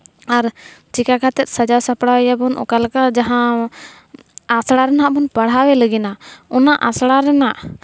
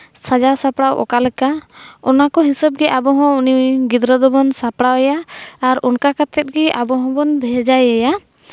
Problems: none marked